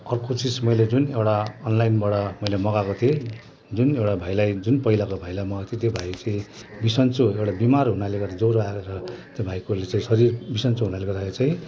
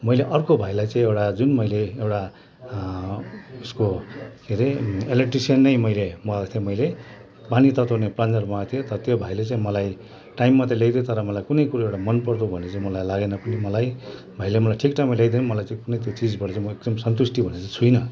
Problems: continuous background conversations